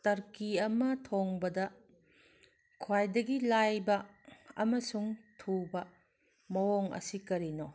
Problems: none marked